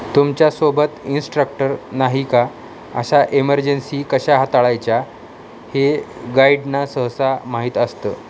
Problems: constant background noise